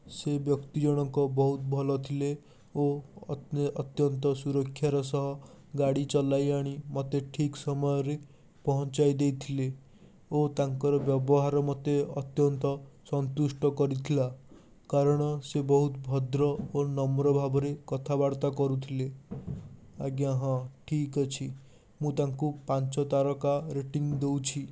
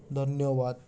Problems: constant background noise